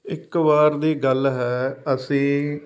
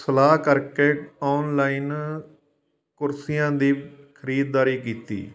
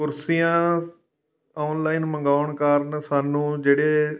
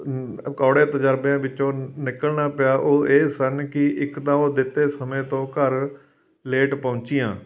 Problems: background sounds at intervals